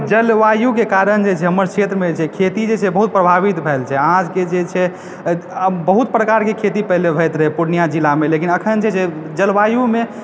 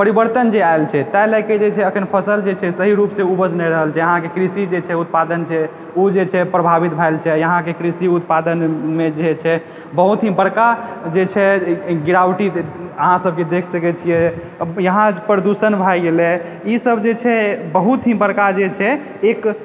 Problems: background sounds at intervals